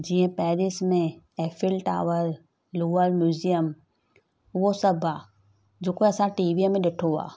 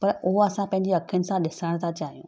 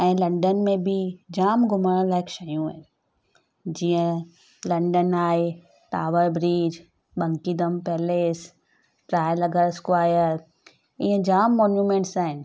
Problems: none marked